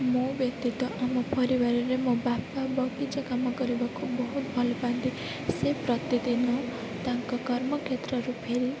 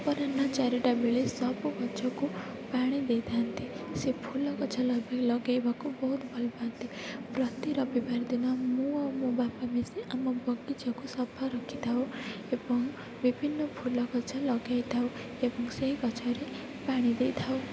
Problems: constant background noise, low volume